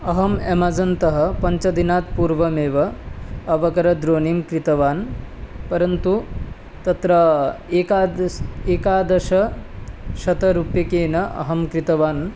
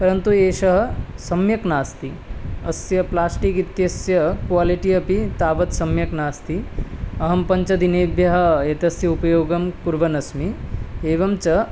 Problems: constant background noise